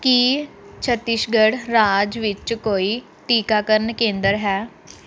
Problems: background sounds at intervals